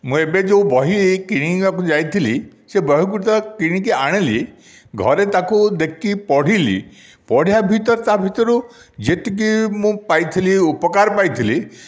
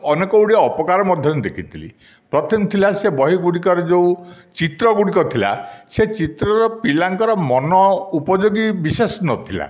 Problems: none marked